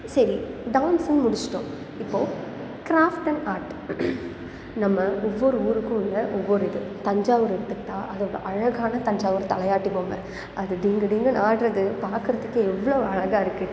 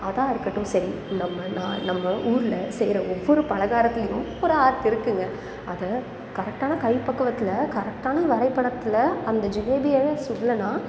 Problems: background sounds at intervals